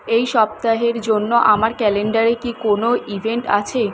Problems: constant background noise